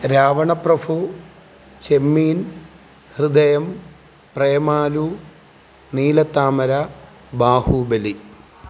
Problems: background sounds at intervals